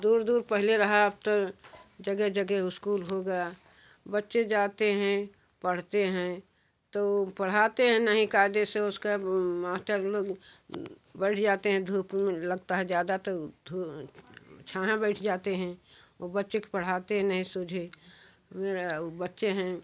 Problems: none marked